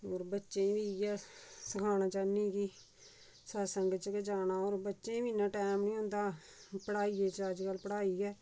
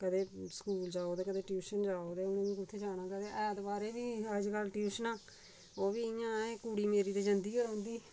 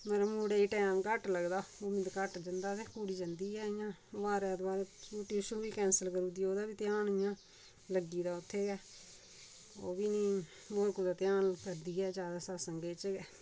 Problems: low volume